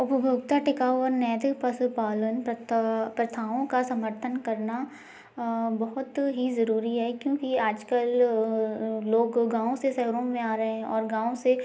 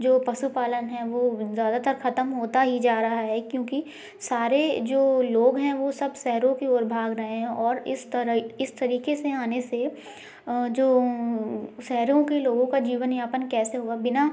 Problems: background sounds at intervals